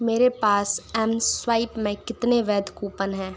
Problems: none marked